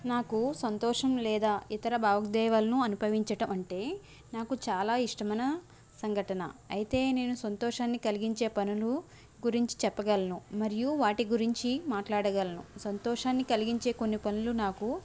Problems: none marked